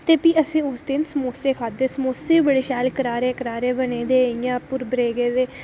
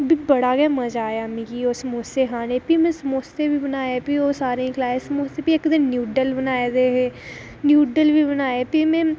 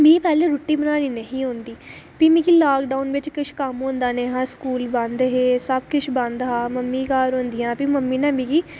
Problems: none marked